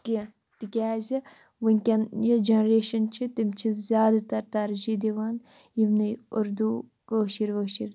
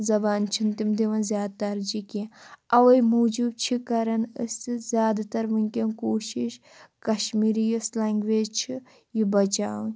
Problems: constant background noise